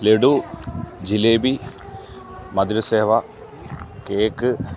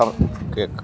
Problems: constant background noise